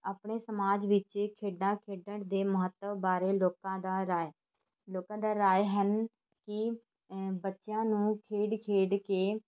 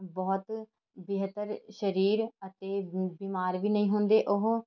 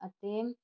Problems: continuous background conversations